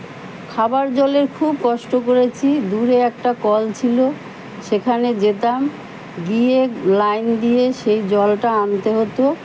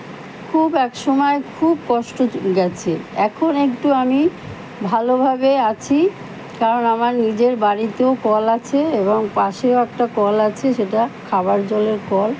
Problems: constant background noise, background conversations at intervals